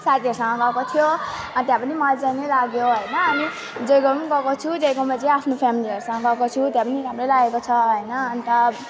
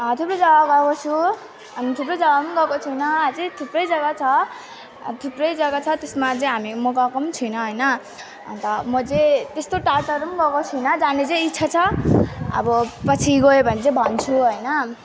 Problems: continuous background conversations